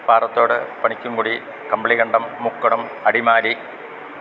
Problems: constant background noise